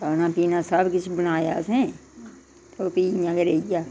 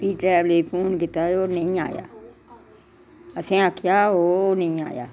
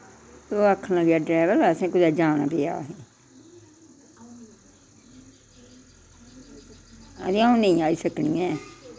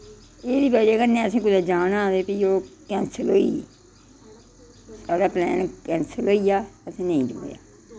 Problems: constant background noise, background conversations at intervals